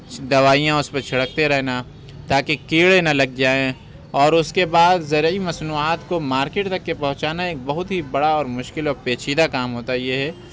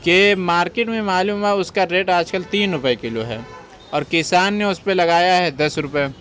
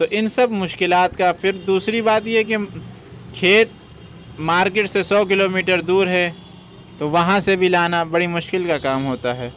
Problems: constant background noise